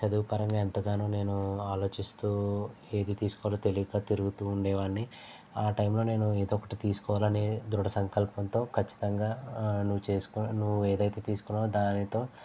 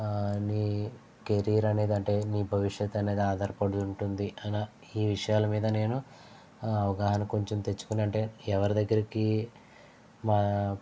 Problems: low volume